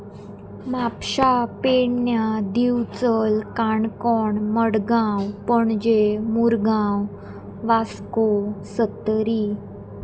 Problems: constant background noise